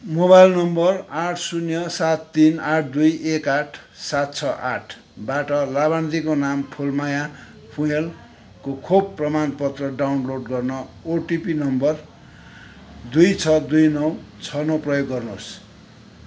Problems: background sounds at intervals, background conversations at intervals